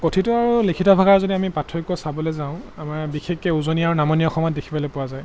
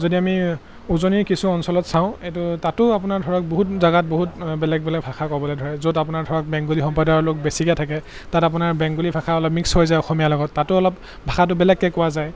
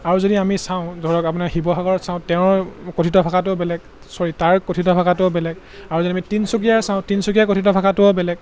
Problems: constant background noise